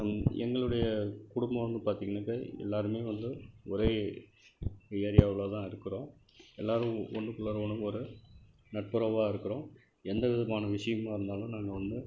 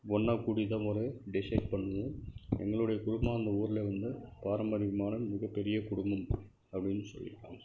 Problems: background sounds at intervals, low volume